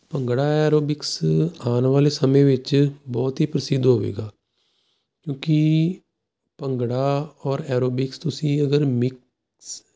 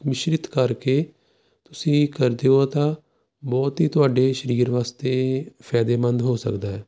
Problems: none marked